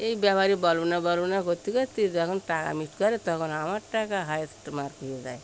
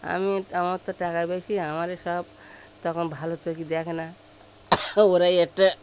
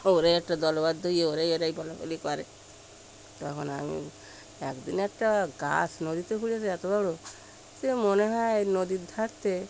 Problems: none marked